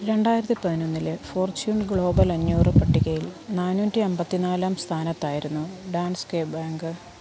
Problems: constant background noise